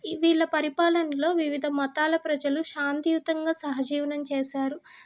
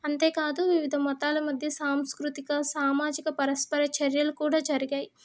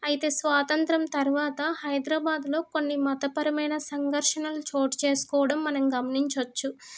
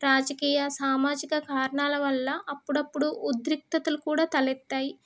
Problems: none marked